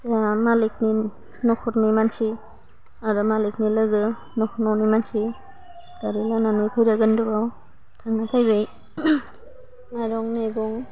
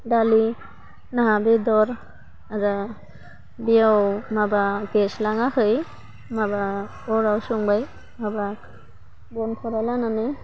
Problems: low volume